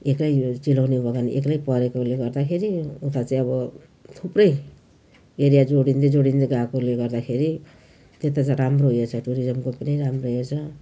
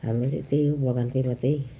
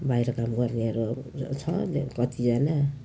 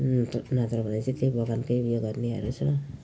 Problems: none marked